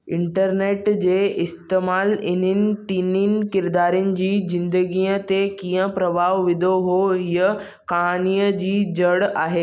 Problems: none marked